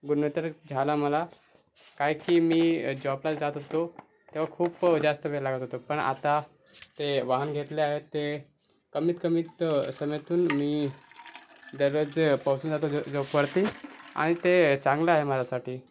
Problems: none marked